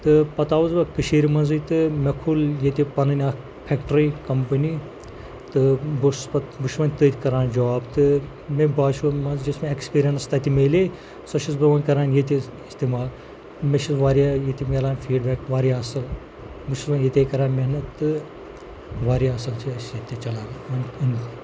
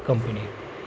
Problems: constant background noise, low volume